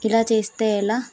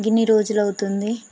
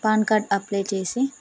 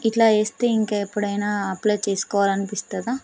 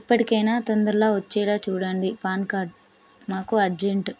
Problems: constant background noise